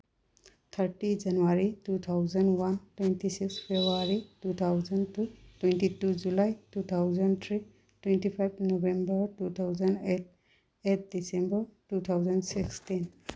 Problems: background sounds at intervals